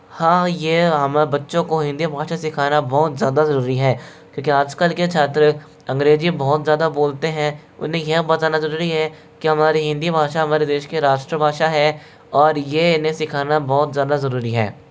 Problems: background sounds at intervals